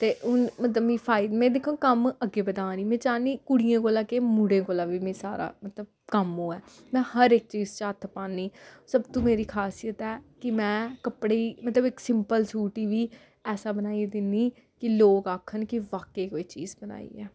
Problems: none marked